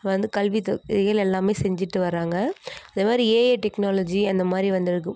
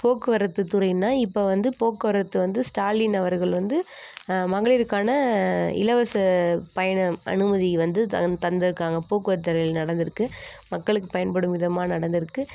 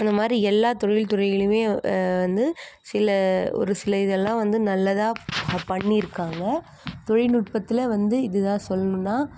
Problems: none marked